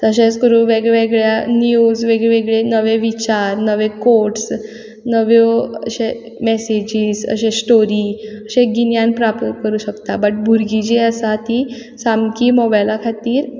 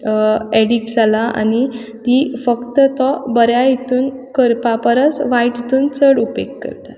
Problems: background sounds at intervals